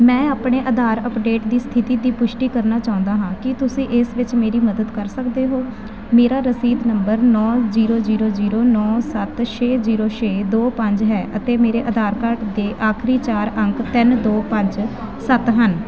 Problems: background conversations at intervals